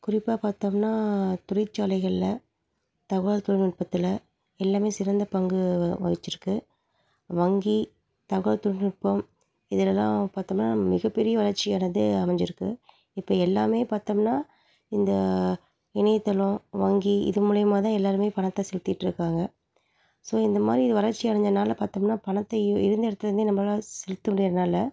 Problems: background sounds at intervals